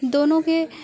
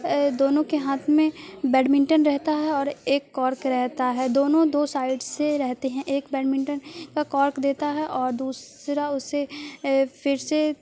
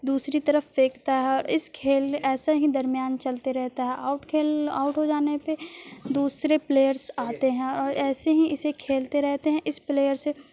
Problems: constant background noise